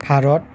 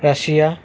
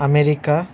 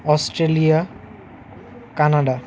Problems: constant background noise, background conversations at intervals